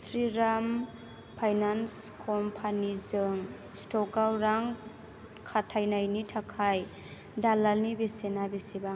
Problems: low volume